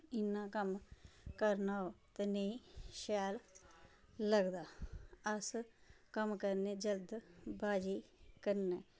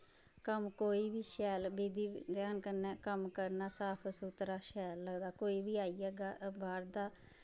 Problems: constant background noise, low volume